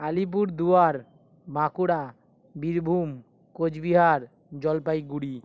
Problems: none marked